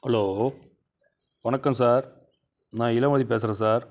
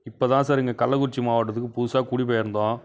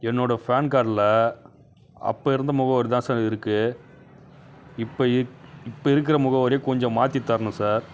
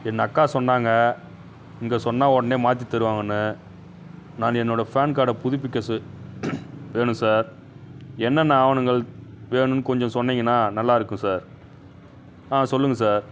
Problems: background sounds at intervals